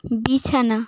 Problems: constant background noise